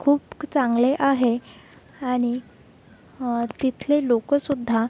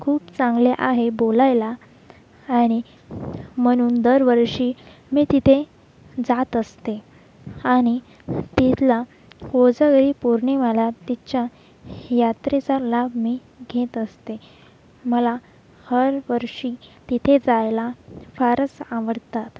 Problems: constant background noise, background conversations at intervals